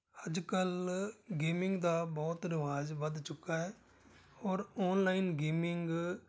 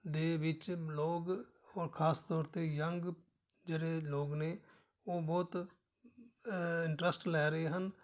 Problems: background sounds at intervals